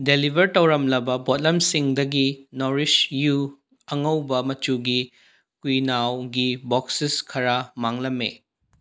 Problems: none marked